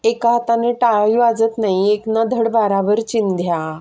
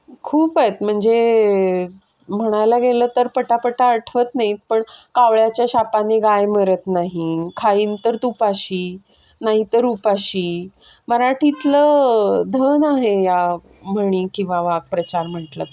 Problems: constant background noise, background conversations at intervals